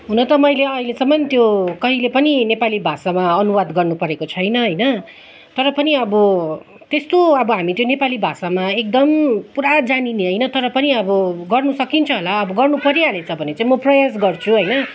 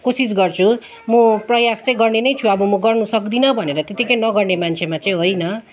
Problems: background sounds at intervals, continuous background conversations